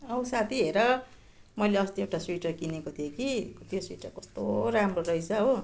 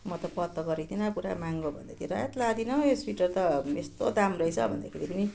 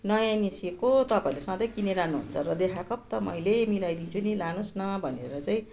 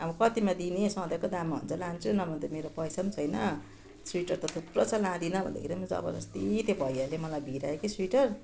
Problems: continuous background conversations